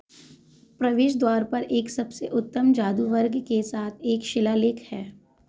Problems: none marked